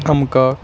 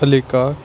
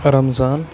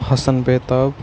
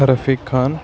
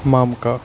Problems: constant background noise